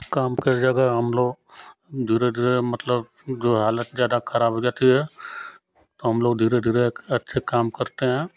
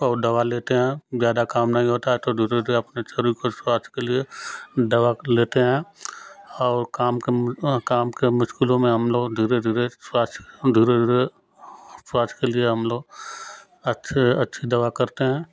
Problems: none marked